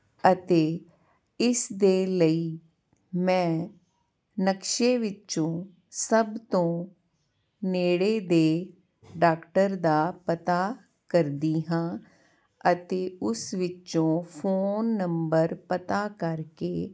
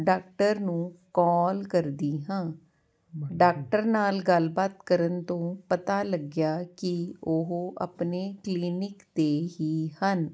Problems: constant background noise